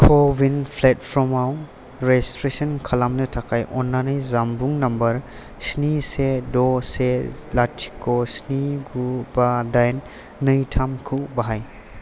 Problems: constant background noise